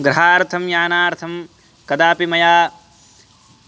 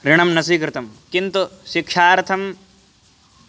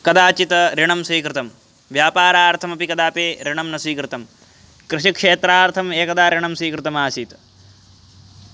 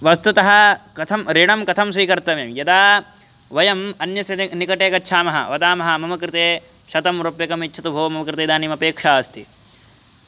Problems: constant background noise